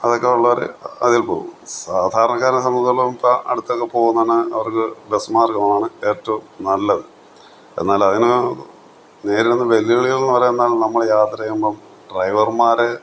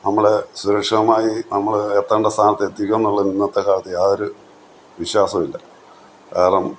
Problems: none marked